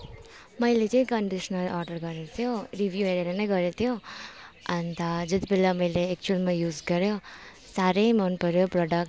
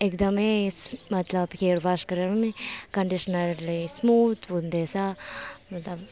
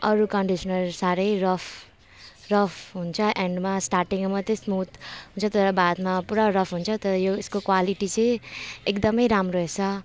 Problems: constant background noise